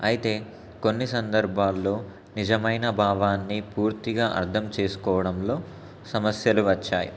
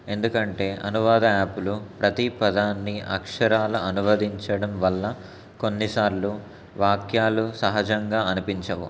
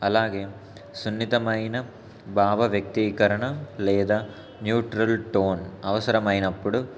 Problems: constant background noise